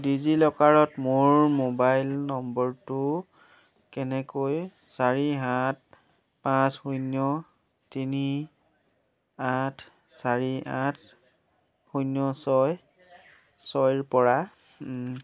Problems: none marked